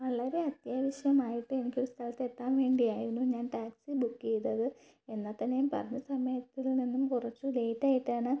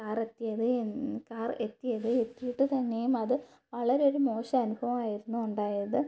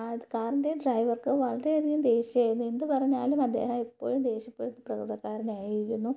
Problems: none marked